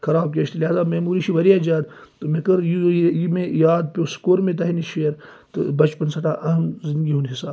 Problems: none marked